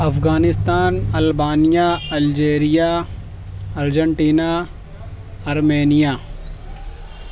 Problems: constant background noise